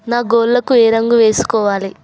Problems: constant background noise